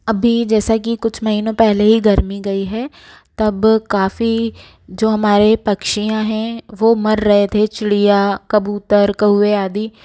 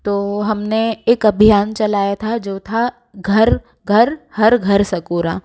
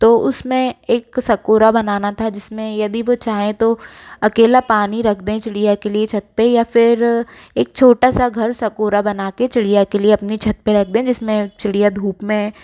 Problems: background sounds at intervals